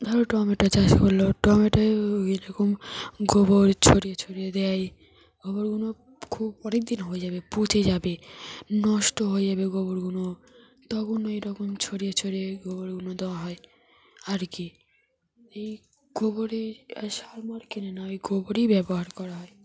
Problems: none marked